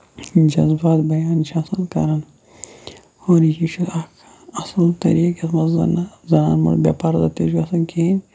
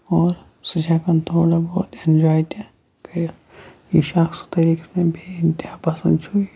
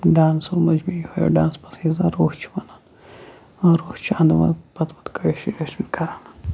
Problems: low volume